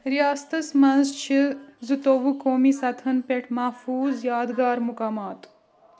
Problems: continuous background conversations